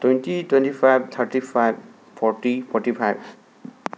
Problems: constant background noise